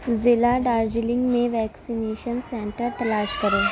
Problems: constant background noise